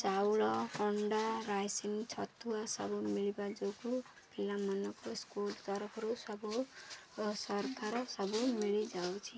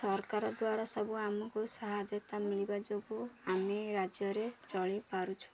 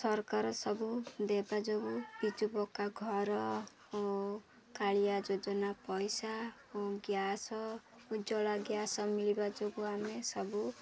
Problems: constant background noise